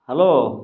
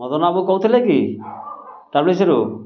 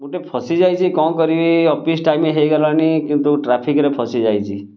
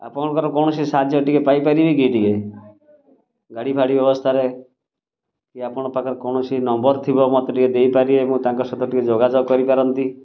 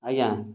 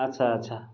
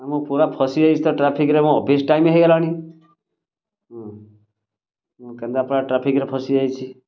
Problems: none marked